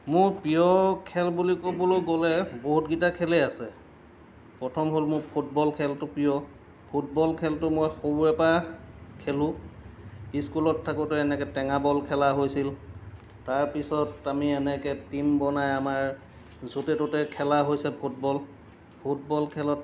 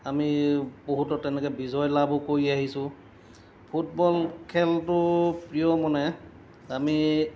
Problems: none marked